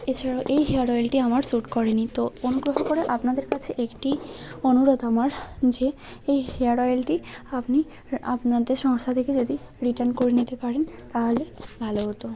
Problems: constant background noise